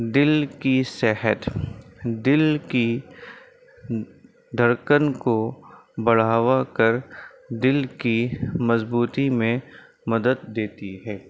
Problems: constant background noise